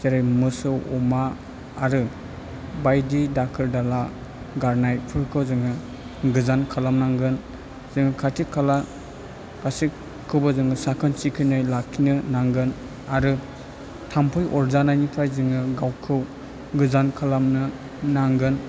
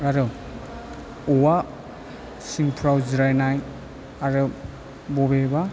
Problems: low volume